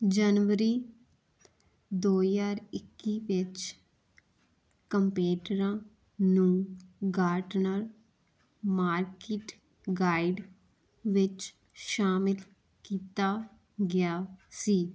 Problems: none marked